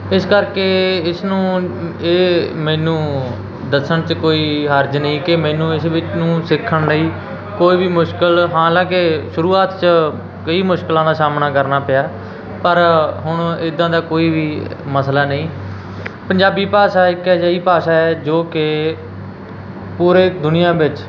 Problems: constant background noise